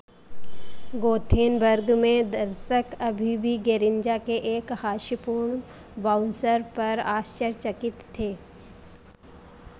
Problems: background sounds at intervals